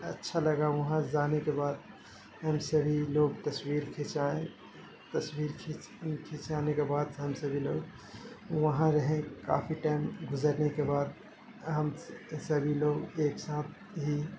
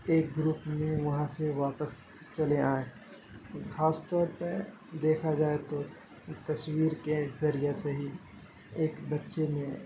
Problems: constant background noise